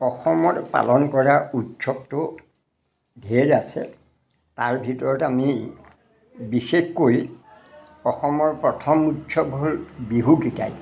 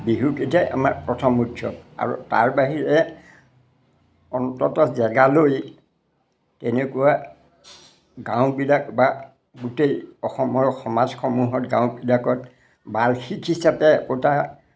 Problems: none marked